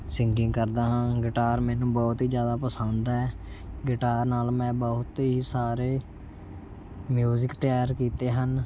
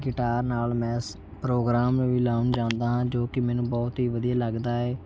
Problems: constant background noise